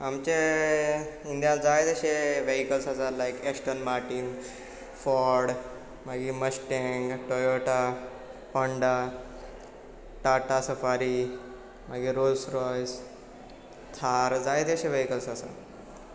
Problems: none marked